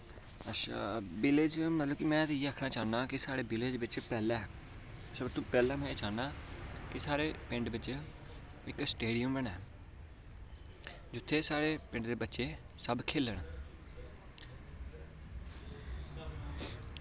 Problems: constant background noise